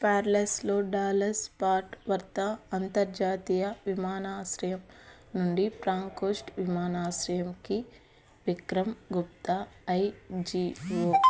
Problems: background sounds at intervals, background conversations at intervals